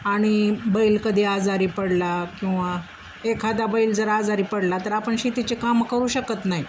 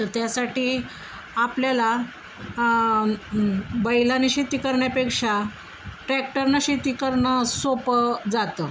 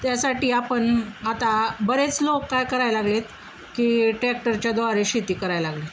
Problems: constant background noise